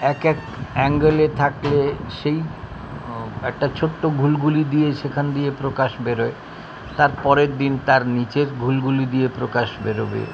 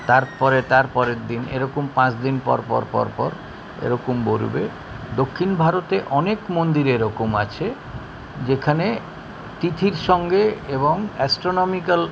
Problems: constant background noise, continuous background conversations